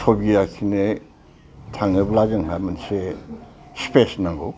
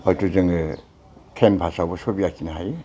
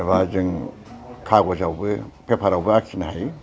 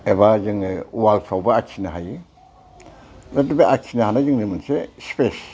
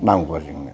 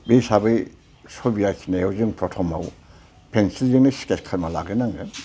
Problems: constant background noise